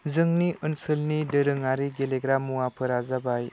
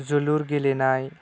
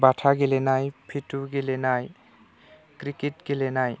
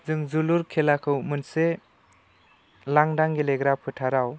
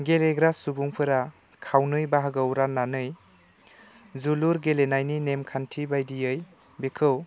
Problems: none marked